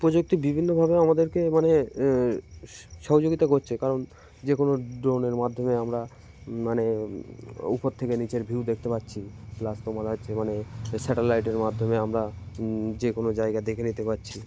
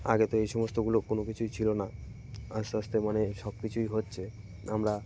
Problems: background sounds at intervals, background conversations at intervals